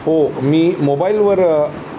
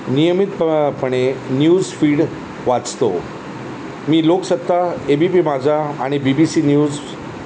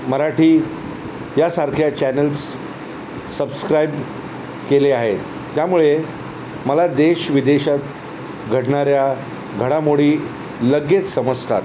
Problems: constant background noise